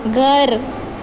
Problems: none marked